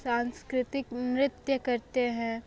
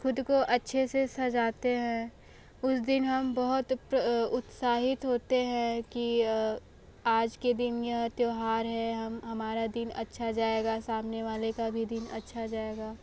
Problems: background sounds at intervals, background conversations at intervals